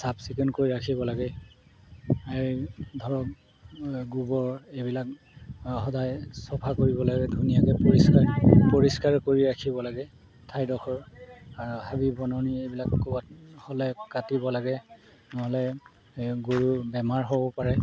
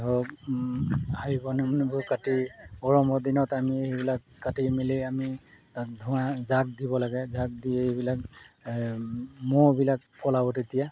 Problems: background sounds at intervals